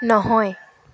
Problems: constant background noise